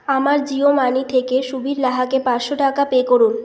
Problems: constant background noise